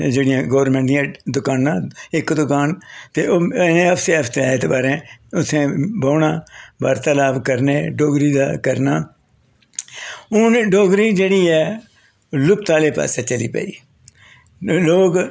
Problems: none marked